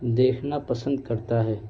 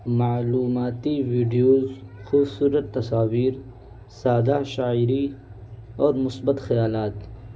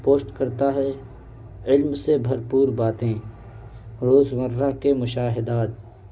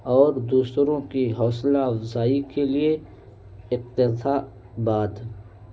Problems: constant background noise